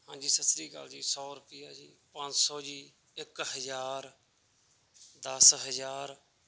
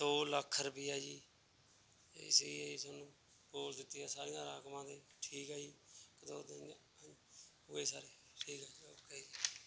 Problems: none marked